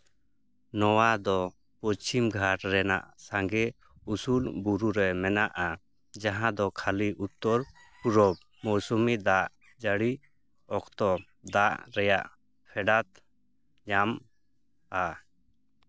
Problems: background sounds at intervals